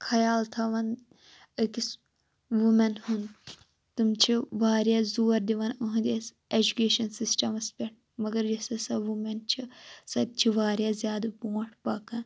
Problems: none marked